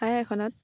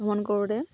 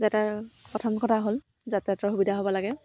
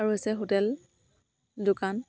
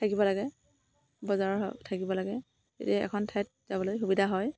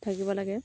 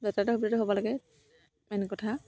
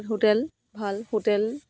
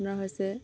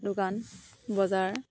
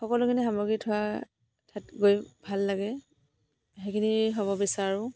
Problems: background sounds at intervals